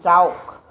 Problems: constant background noise